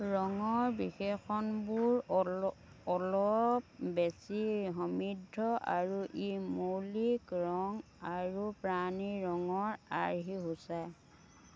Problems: background sounds at intervals, background conversations at intervals